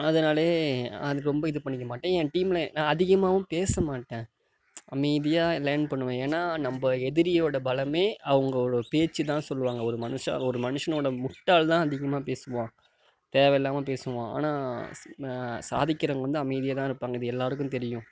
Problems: none marked